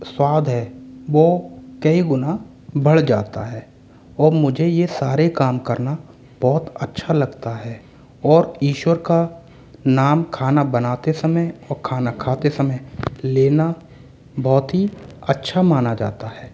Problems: background sounds at intervals